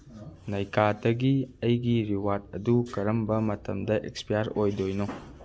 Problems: none marked